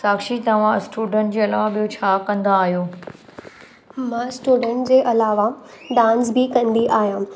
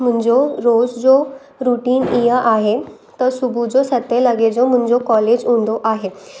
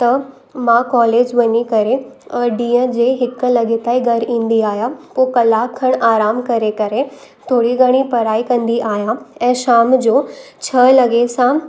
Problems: background sounds at intervals